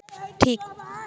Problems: none marked